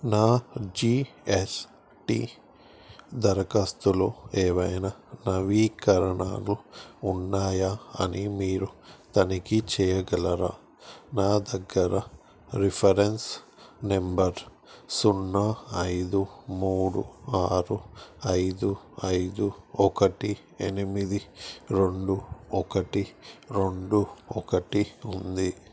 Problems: constant background noise